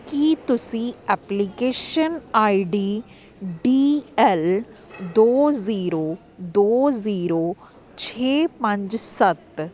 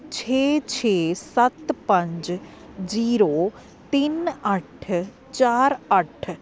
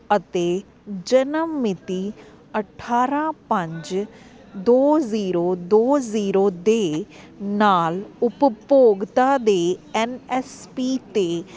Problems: constant background noise